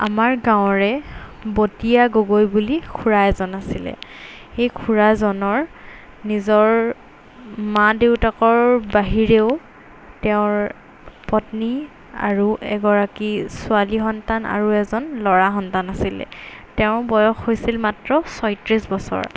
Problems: constant background noise